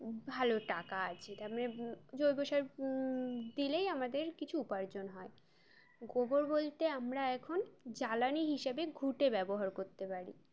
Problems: constant background noise, background conversations at intervals